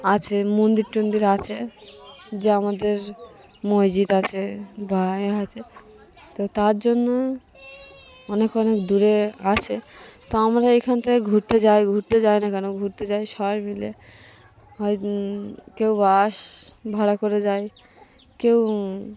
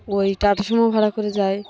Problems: none marked